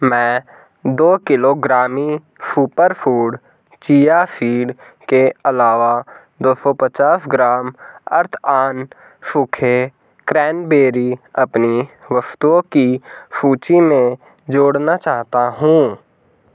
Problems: none marked